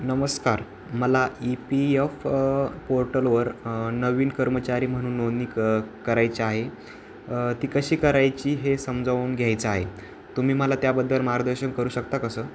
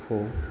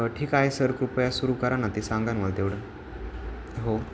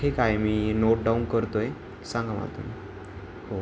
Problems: none marked